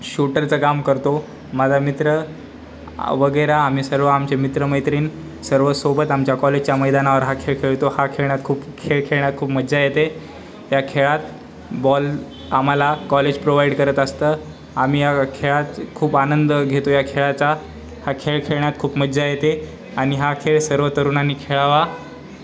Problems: constant background noise, continuous background conversations